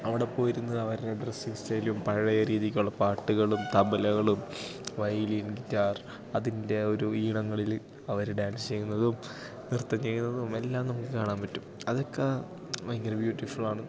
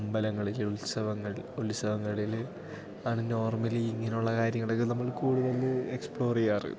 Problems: background sounds at intervals